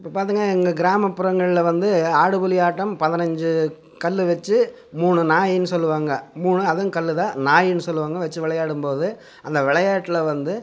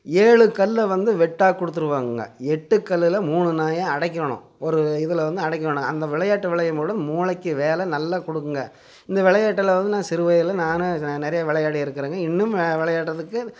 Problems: constant background noise